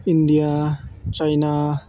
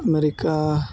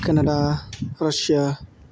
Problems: none marked